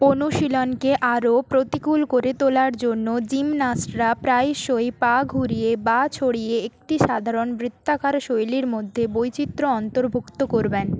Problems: none marked